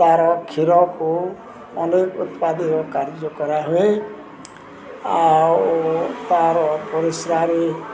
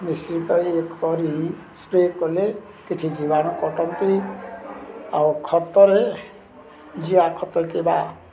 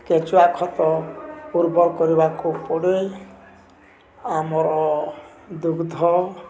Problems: constant background noise, continuous background conversations